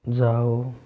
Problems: constant background noise